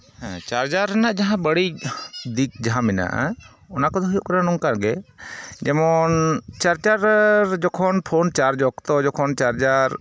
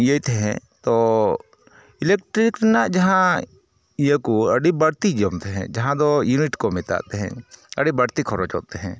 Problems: none marked